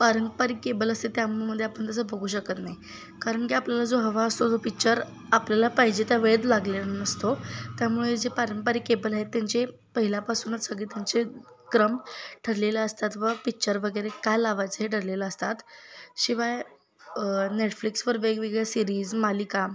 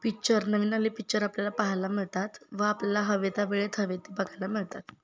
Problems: constant background noise, continuous background conversations